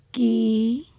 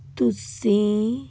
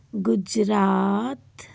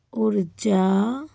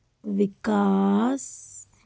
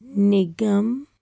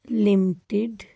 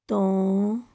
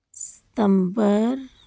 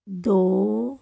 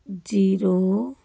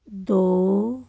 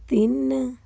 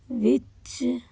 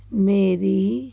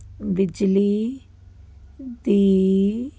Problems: none marked